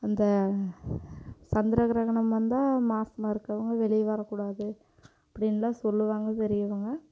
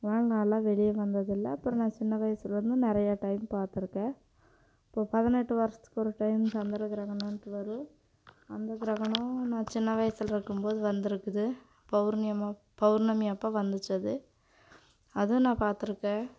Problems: none marked